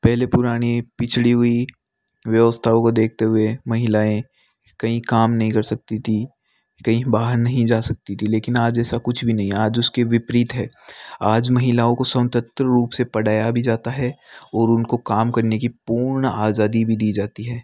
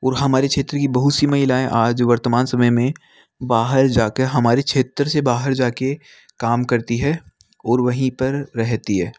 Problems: none marked